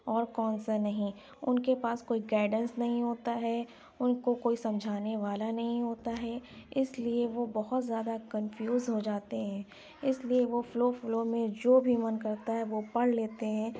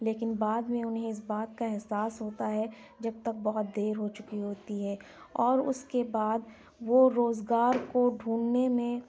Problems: none marked